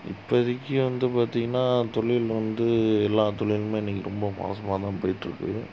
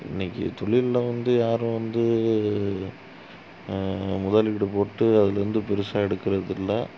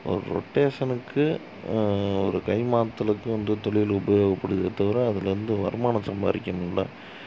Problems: constant background noise, low volume